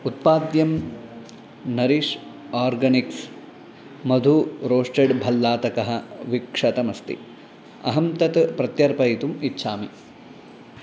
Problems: constant background noise